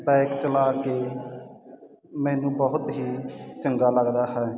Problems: none marked